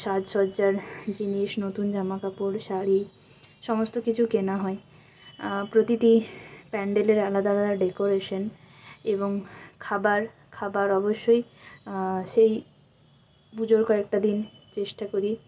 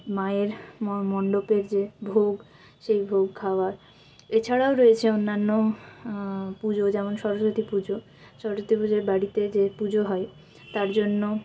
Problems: constant background noise